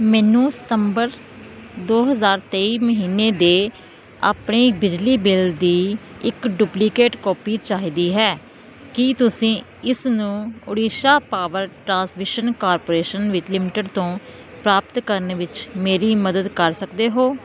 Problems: constant background noise